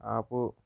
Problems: low volume